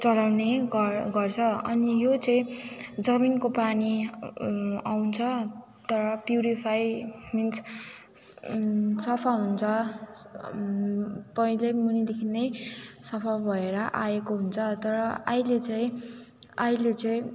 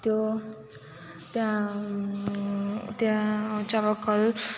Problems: background sounds at intervals, background conversations at intervals